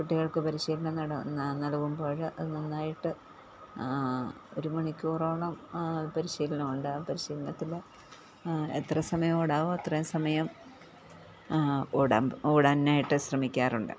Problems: low volume